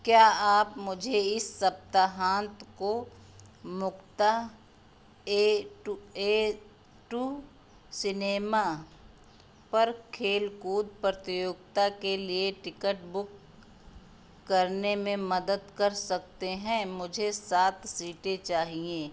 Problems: constant background noise